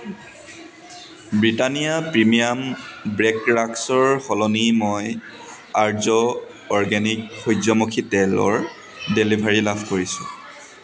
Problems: constant background noise, background conversations at intervals